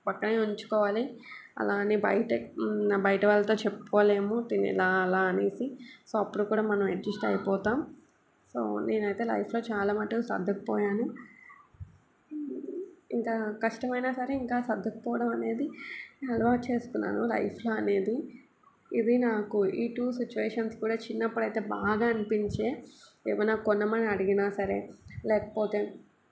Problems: constant background noise